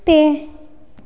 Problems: none marked